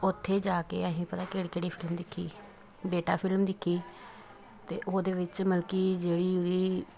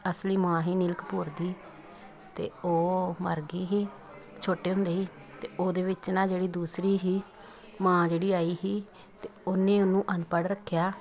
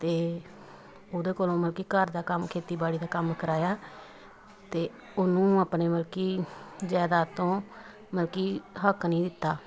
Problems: continuous background conversations